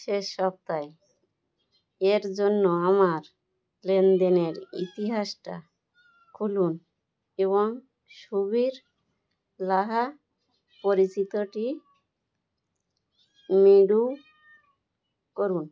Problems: none marked